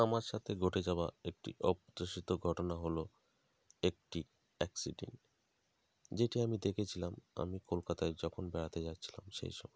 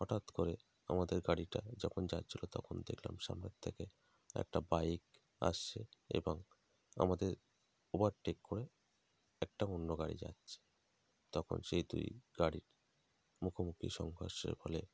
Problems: constant background noise